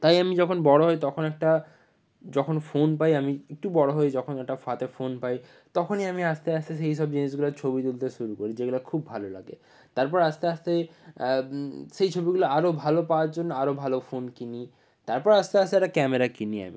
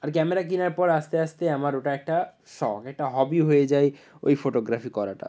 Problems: none marked